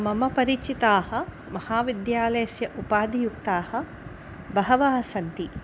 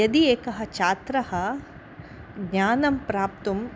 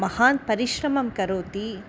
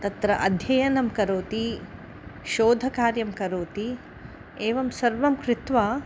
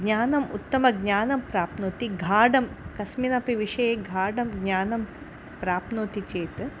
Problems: none marked